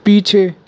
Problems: constant background noise